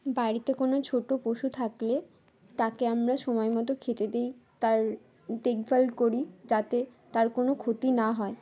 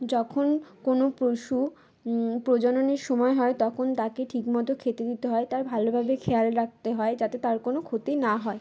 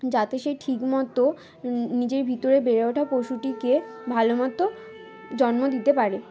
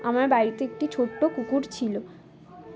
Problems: constant background noise, background conversations at intervals